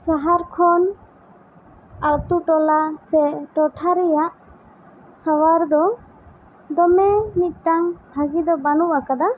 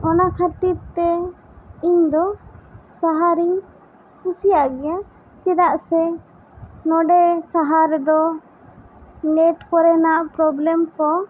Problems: constant background noise